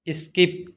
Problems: none marked